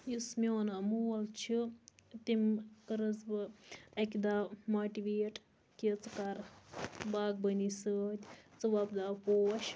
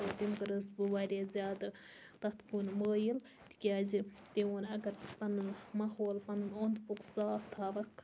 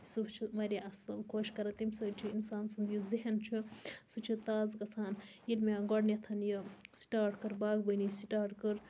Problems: constant background noise